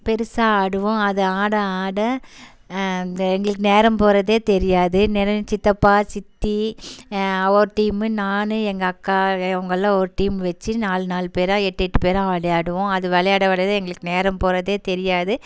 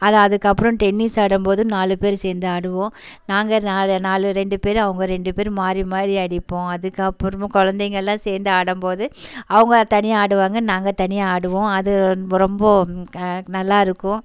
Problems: constant background noise